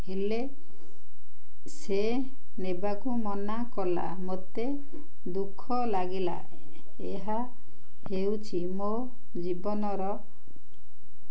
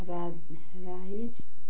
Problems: none marked